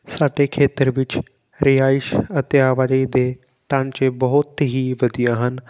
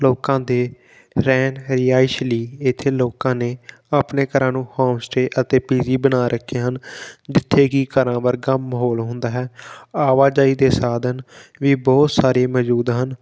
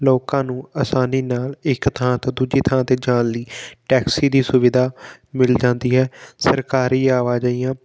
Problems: background sounds at intervals